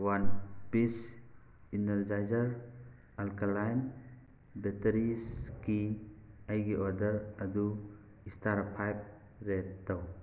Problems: none marked